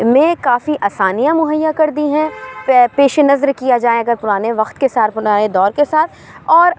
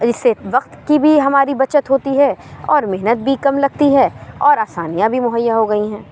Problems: none marked